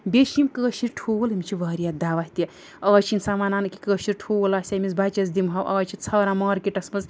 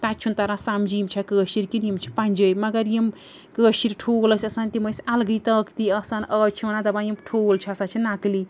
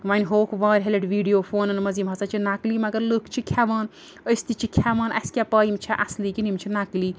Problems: background sounds at intervals